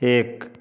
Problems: background conversations at intervals